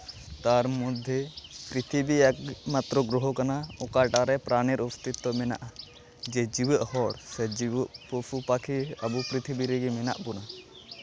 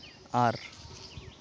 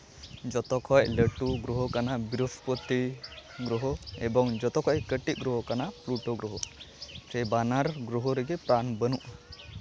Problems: background sounds at intervals